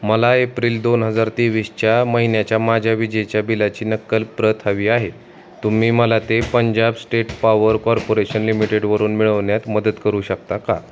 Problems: none marked